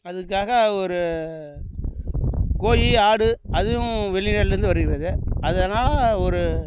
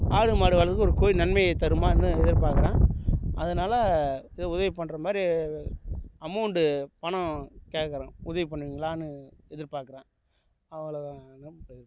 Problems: background sounds at intervals